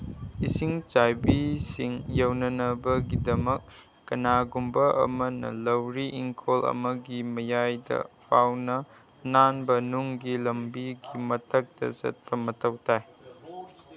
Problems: constant background noise